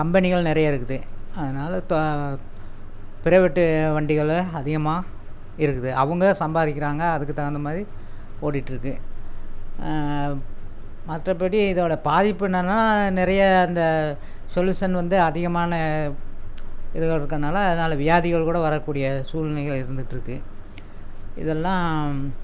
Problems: constant background noise